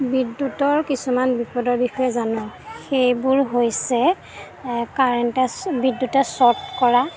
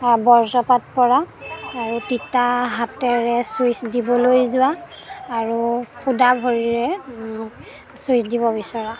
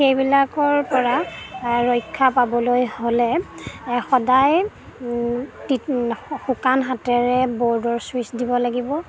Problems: background sounds at intervals